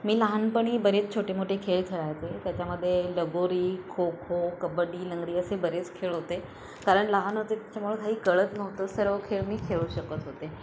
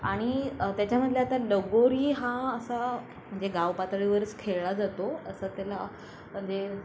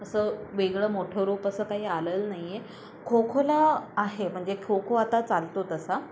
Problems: constant background noise